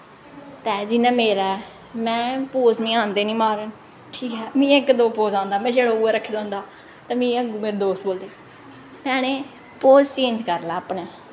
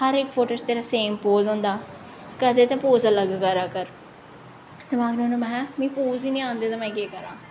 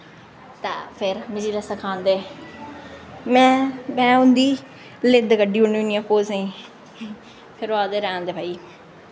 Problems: echo